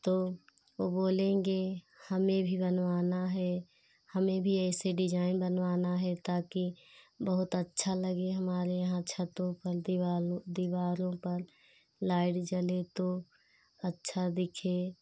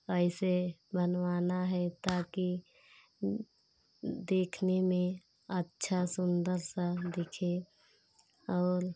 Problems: constant background noise